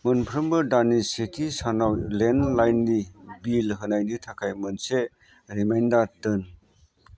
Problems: constant background noise